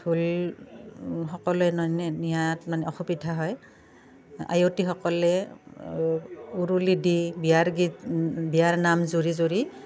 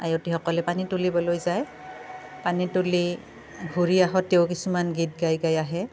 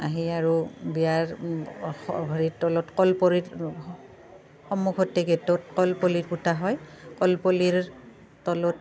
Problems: constant background noise, background conversations at intervals